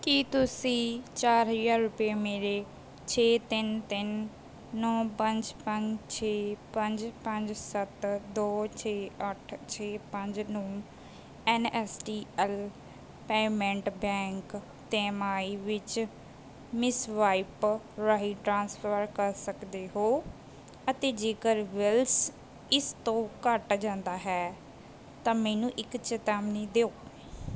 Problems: none marked